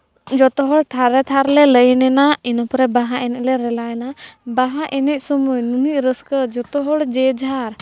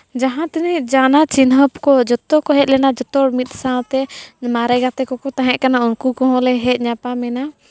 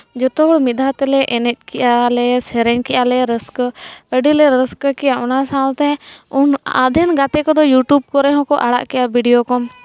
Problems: background conversations at intervals